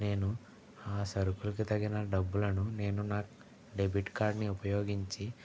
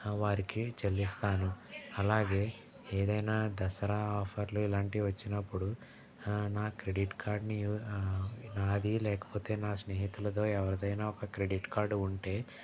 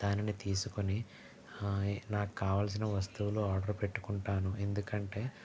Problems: background sounds at intervals, background conversations at intervals, low volume